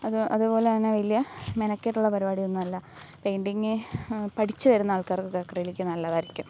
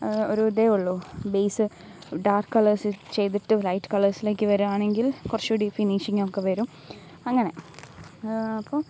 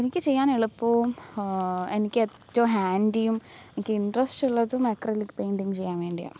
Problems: none marked